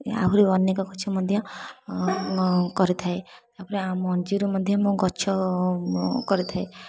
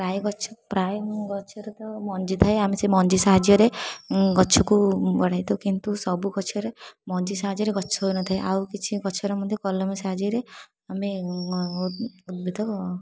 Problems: background sounds at intervals